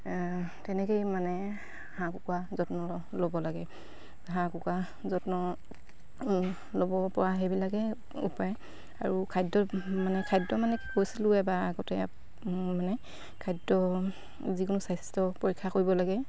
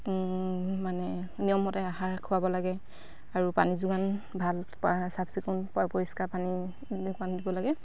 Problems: constant background noise